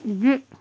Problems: constant background noise